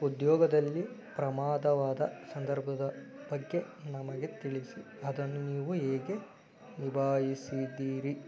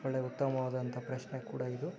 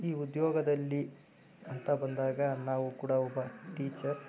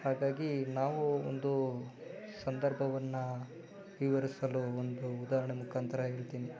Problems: background sounds at intervals